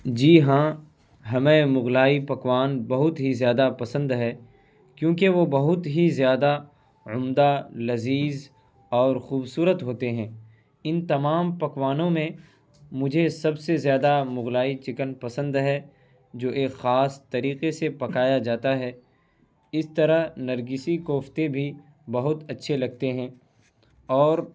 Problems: constant background noise